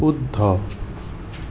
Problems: constant background noise